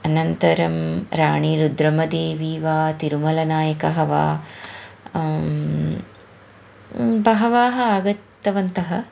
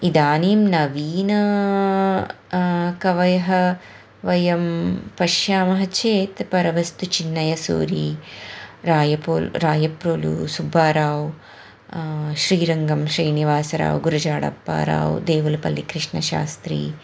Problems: background sounds at intervals, background conversations at intervals